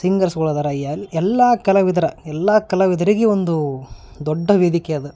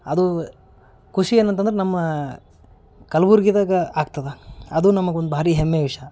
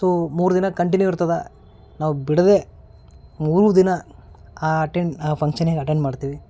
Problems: none marked